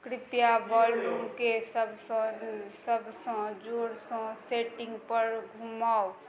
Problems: none marked